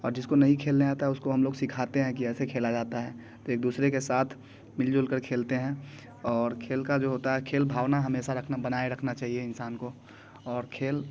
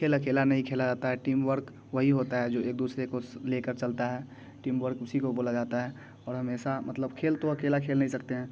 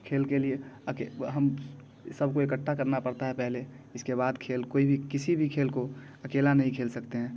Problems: constant background noise, background conversations at intervals